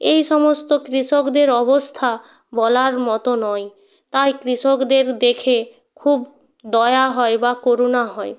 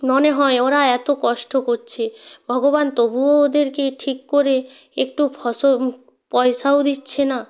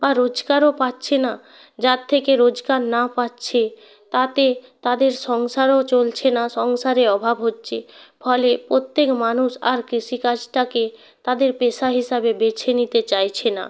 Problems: background sounds at intervals